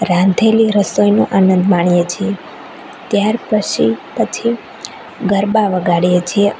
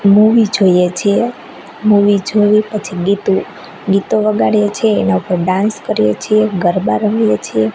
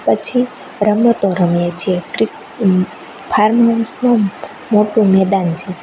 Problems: constant background noise